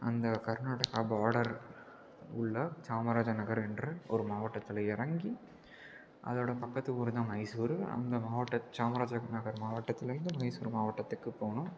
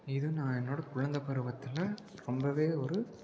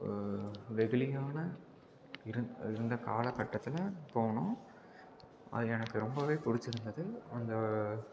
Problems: constant background noise, low volume